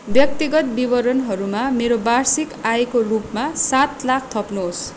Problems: constant background noise